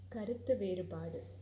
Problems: constant background noise